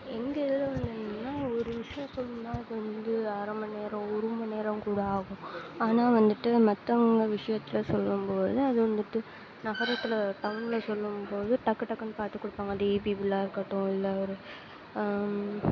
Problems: background sounds at intervals, low volume